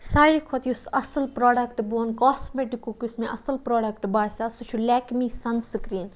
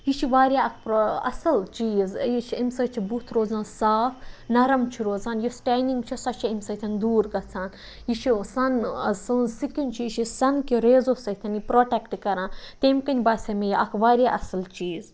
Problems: none marked